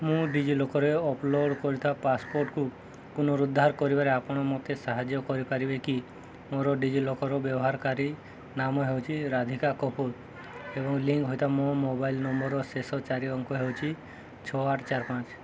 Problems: background sounds at intervals